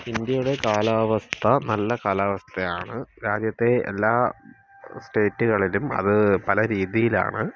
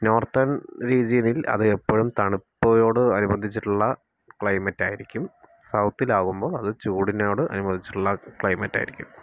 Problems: none marked